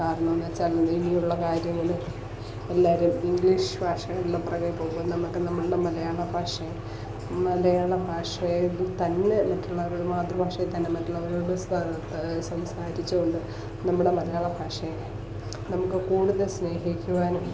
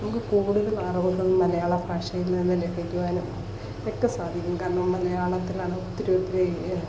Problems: constant background noise, low volume